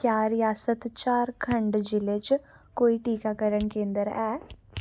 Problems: background sounds at intervals